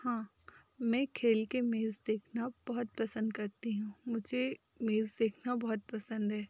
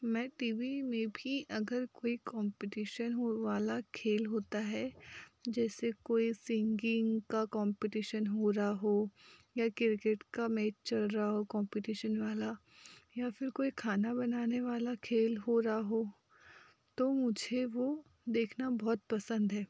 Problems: none marked